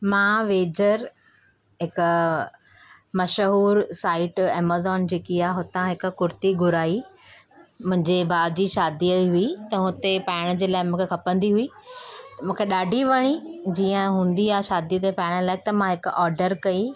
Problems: none marked